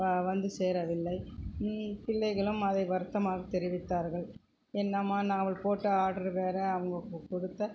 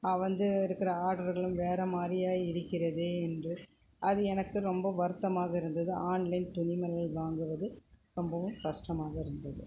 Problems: constant background noise, background conversations at intervals